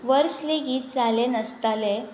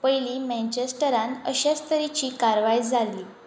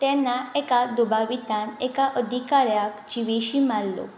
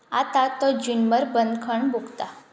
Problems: constant background noise